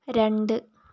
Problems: low volume